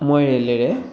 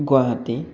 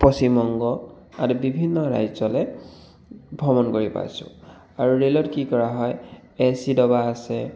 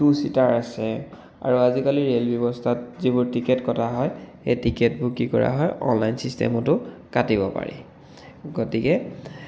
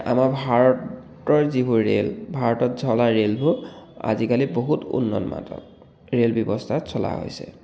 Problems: echo